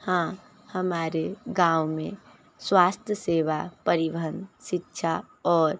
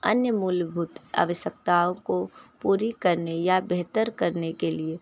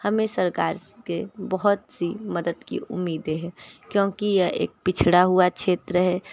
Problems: background sounds at intervals, background conversations at intervals